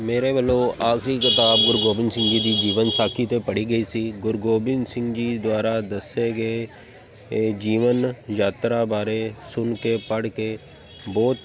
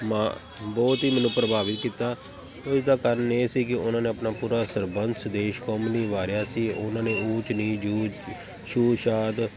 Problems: constant background noise